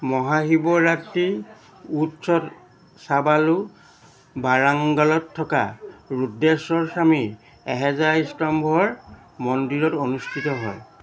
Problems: constant background noise, background conversations at intervals